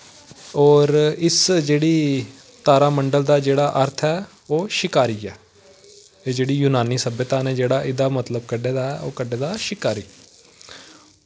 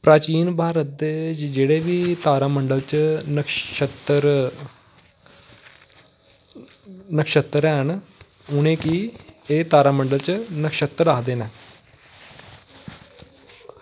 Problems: constant background noise